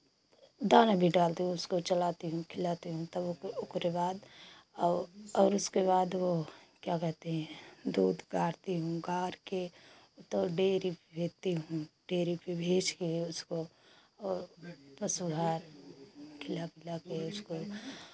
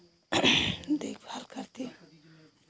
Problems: constant background noise